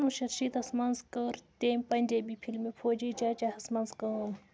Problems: background conversations at intervals, low volume